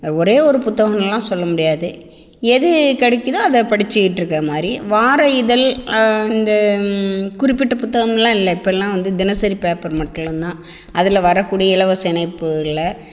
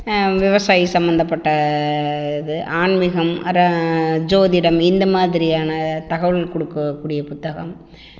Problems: echo